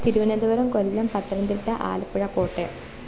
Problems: constant background noise